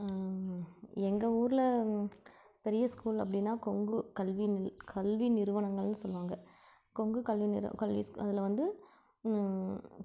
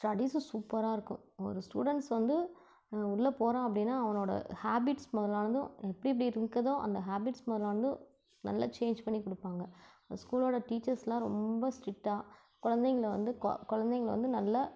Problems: low volume